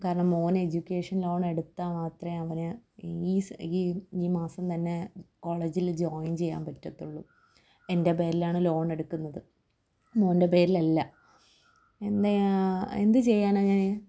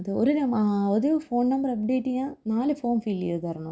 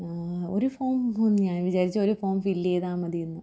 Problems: low volume